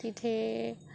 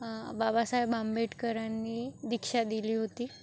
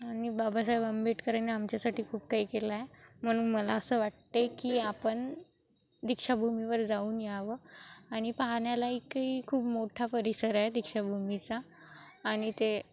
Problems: constant background noise, continuous background conversations